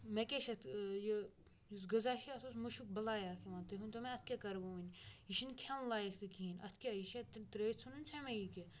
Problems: background sounds at intervals